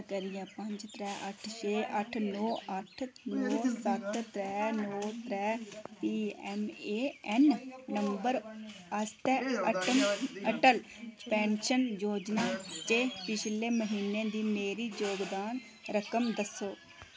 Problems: constant background noise